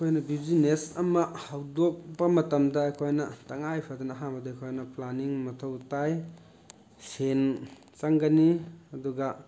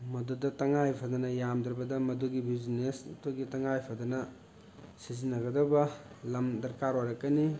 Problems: constant background noise, background conversations at intervals